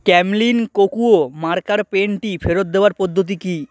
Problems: constant background noise, background conversations at intervals